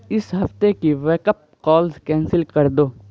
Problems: constant background noise